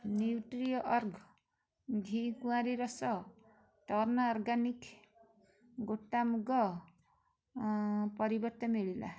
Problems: background conversations at intervals